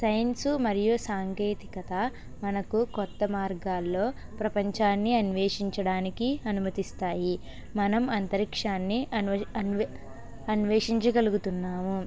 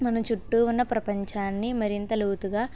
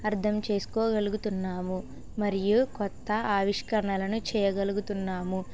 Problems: constant background noise, background conversations at intervals